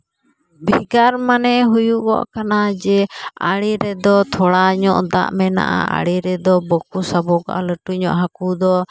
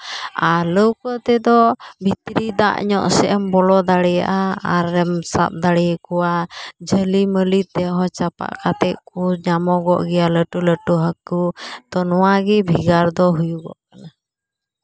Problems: background sounds at intervals